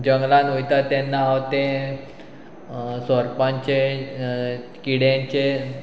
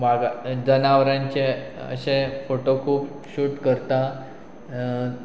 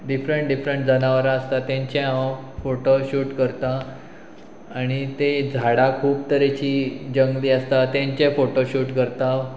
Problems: constant background noise